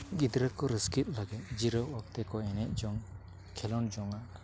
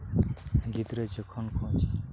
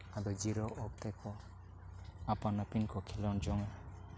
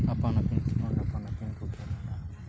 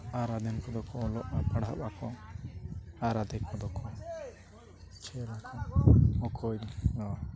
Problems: constant background noise, low volume